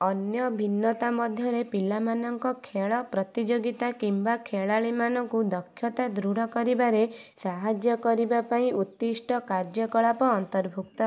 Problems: none marked